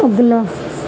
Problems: constant background noise, low volume